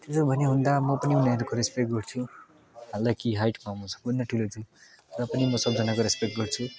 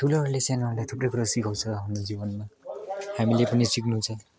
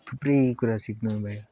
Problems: continuous background conversations